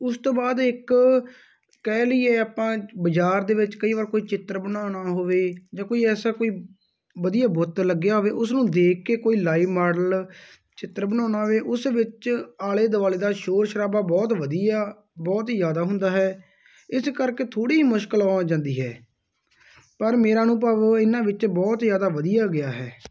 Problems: none marked